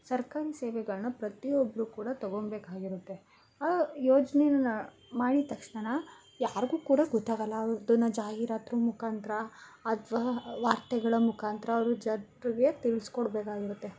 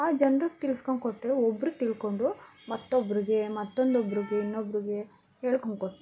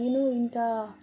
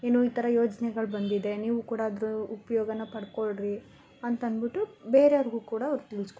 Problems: constant background noise